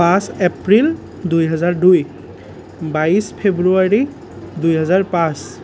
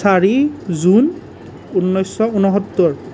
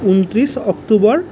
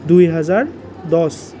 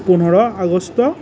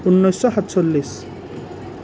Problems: none marked